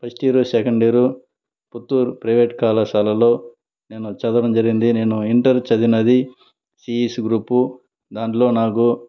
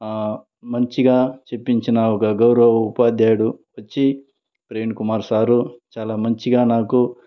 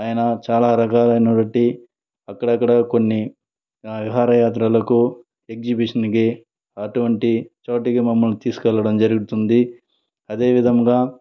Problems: none marked